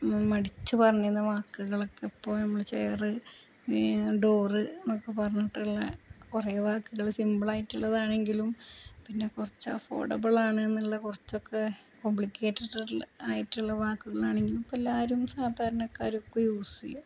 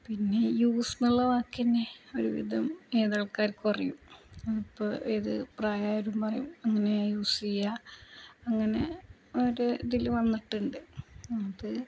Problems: constant background noise, low volume